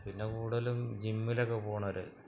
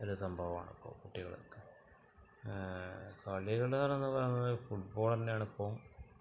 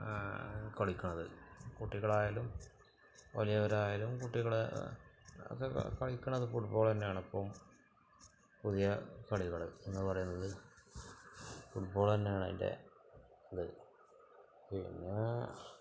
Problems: background sounds at intervals, low volume